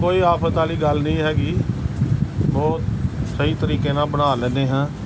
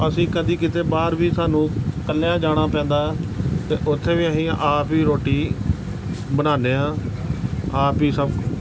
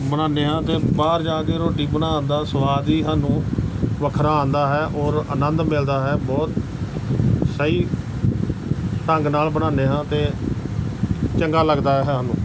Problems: none marked